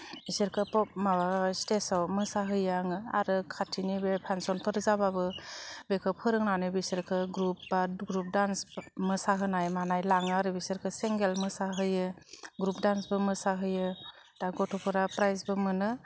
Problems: none marked